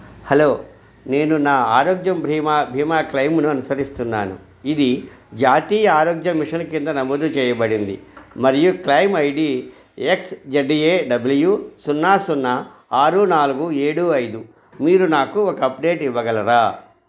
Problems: none marked